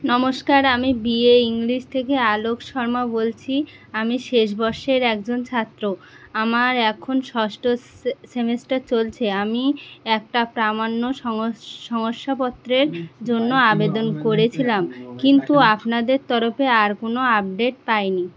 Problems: constant background noise, background conversations at intervals